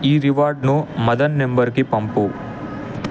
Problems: constant background noise